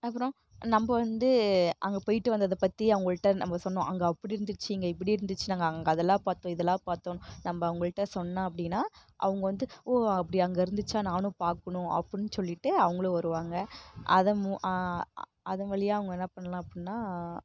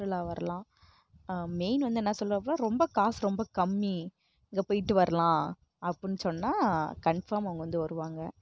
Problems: background sounds at intervals